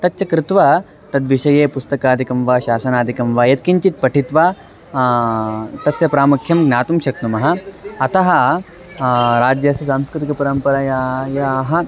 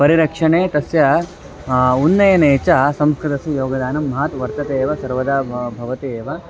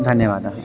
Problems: constant background noise, continuous background conversations